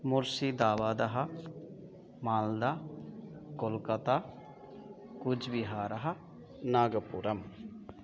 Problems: continuous background conversations